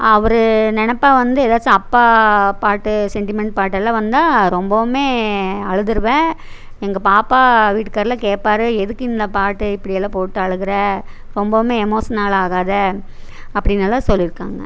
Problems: none marked